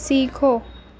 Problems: none marked